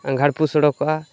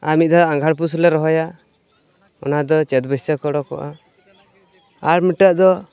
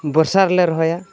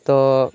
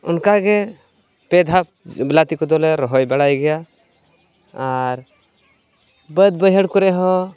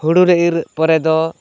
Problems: constant background noise, continuous background conversations